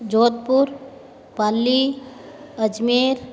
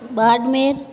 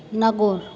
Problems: constant background noise, background conversations at intervals